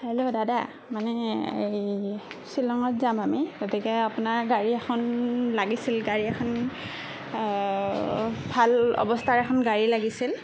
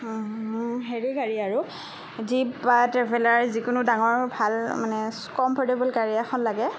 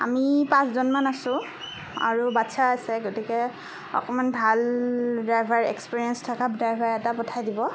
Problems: none marked